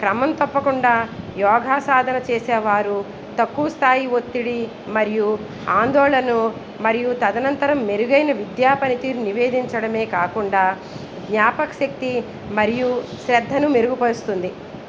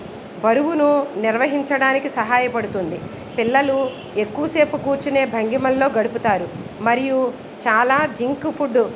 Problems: background sounds at intervals